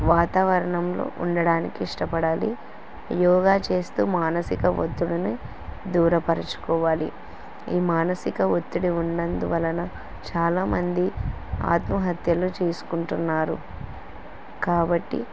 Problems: constant background noise